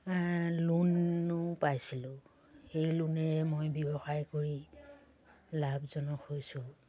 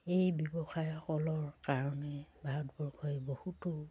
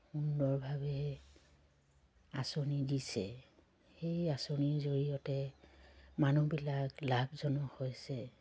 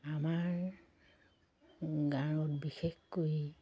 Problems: constant background noise, low volume